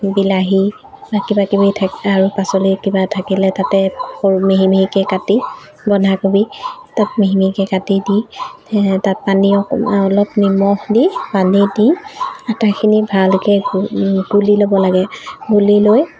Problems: background sounds at intervals